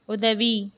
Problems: none marked